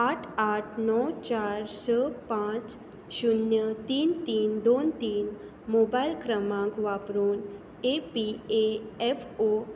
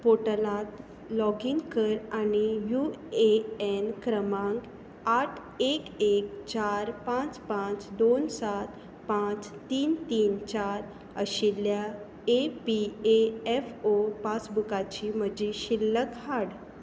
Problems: none marked